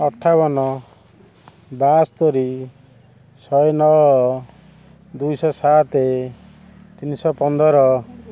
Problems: constant background noise